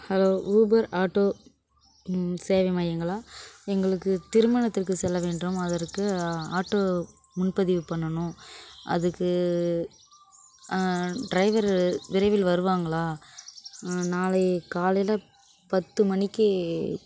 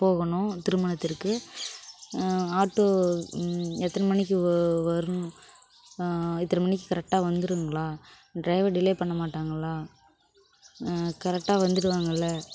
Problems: constant background noise